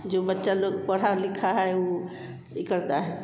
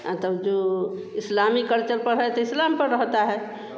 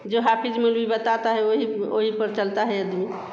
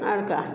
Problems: constant background noise